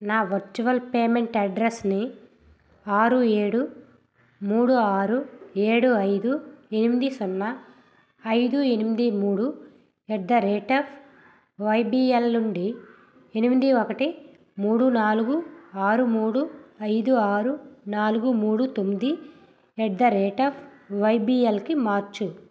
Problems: background sounds at intervals